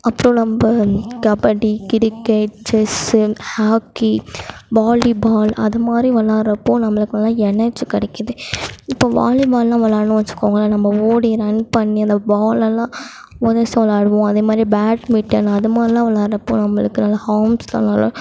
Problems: none marked